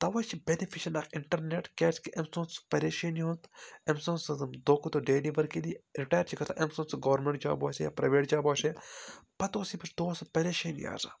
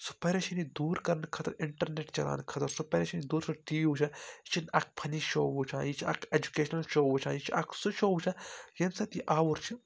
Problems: none marked